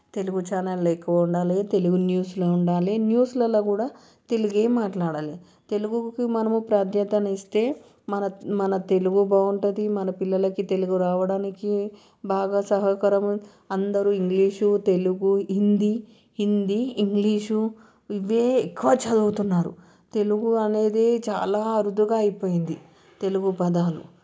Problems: none marked